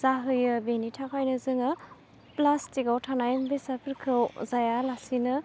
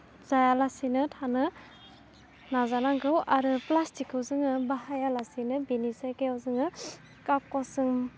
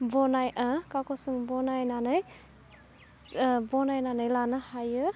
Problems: constant background noise